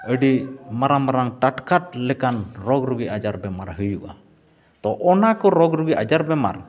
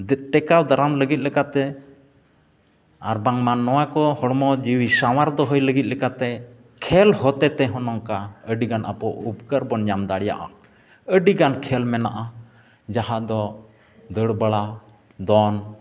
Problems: background sounds at intervals